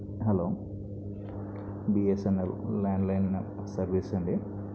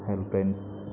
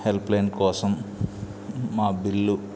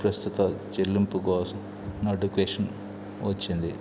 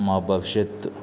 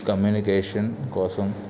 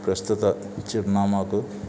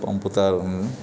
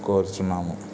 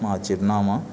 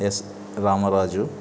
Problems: background sounds at intervals, low volume